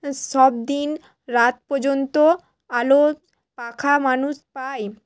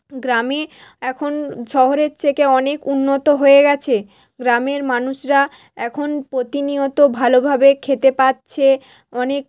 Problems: none marked